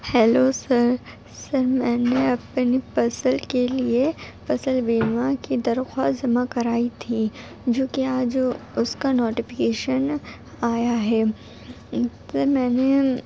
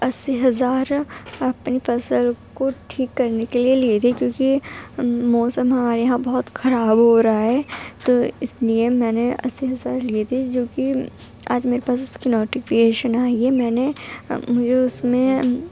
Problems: background sounds at intervals, low volume